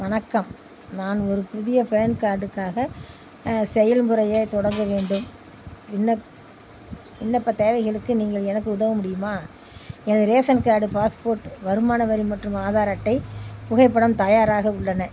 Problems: background sounds at intervals